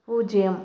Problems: constant background noise